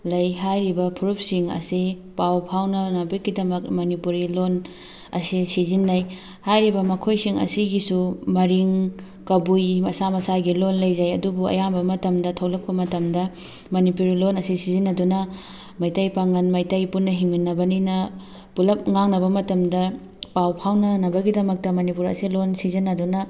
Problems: background sounds at intervals, background conversations at intervals